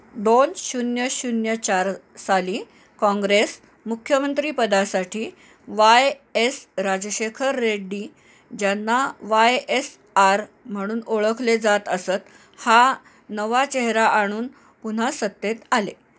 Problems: background sounds at intervals